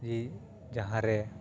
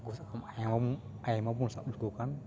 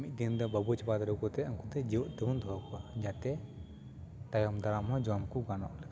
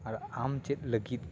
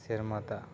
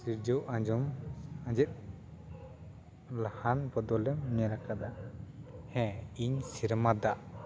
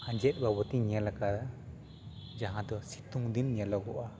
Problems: continuous background conversations